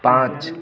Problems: none marked